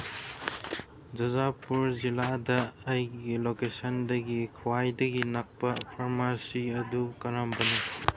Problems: background sounds at intervals